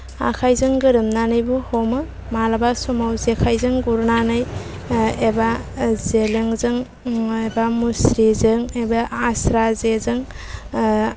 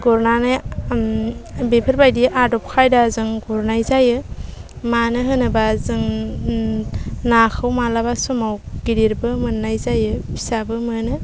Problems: low volume